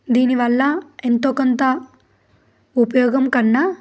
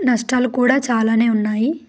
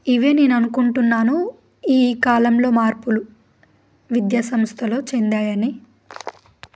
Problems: background sounds at intervals